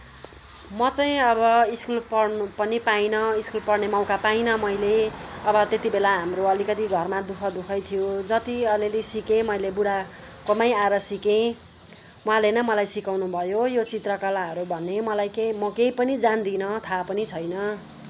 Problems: constant background noise